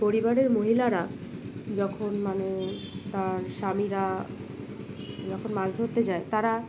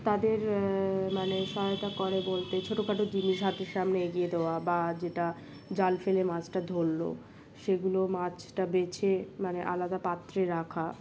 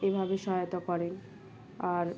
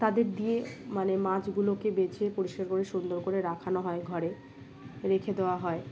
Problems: background sounds at intervals